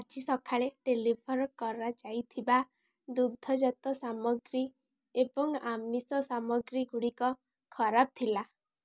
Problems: none marked